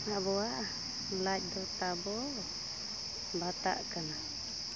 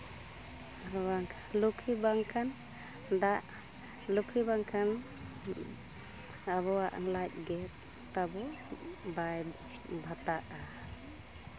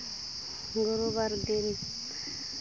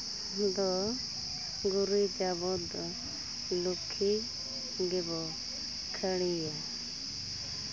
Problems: constant background noise, background conversations at intervals